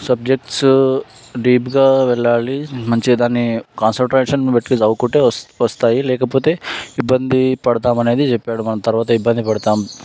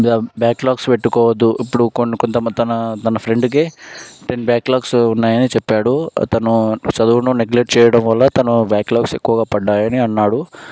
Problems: constant background noise